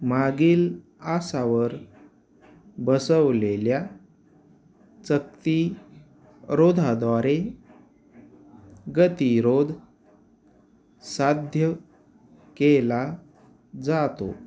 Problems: none marked